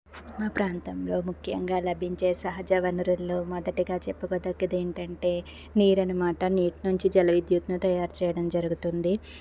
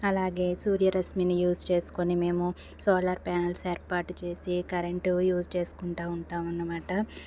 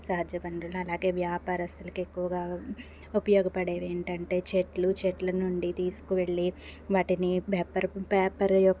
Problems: constant background noise